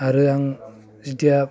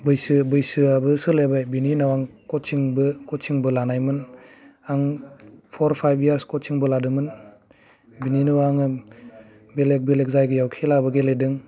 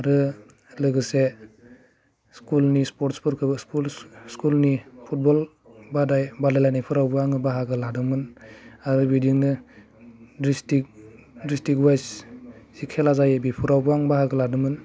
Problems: low volume